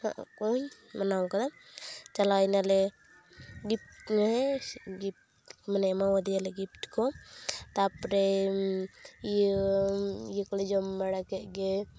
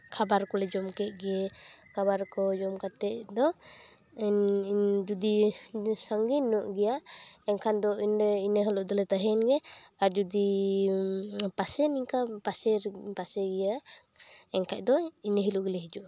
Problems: background sounds at intervals